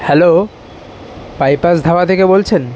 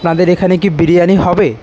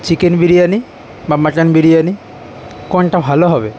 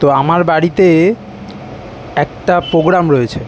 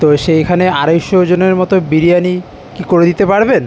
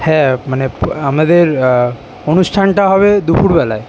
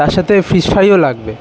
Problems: constant background noise